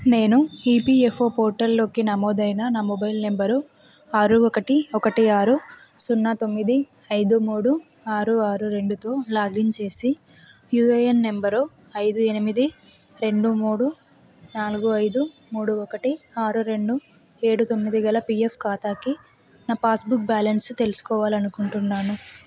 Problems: background conversations at intervals